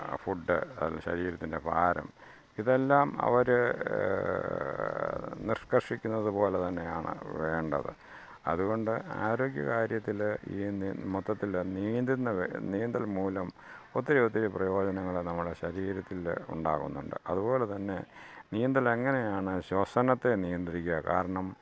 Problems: background sounds at intervals, low volume